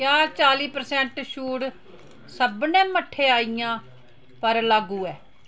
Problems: none marked